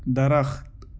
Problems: constant background noise